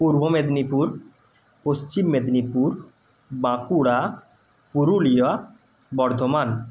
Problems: none marked